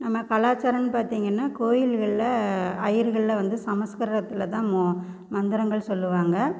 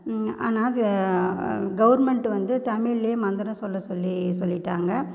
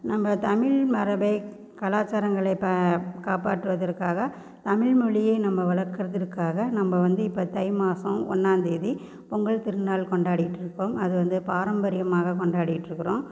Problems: constant background noise